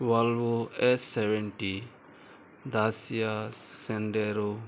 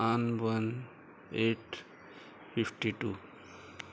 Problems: constant background noise